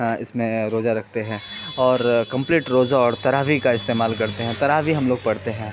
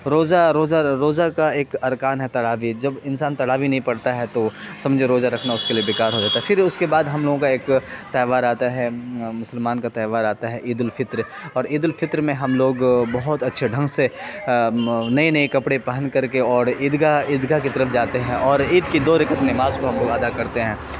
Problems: constant background noise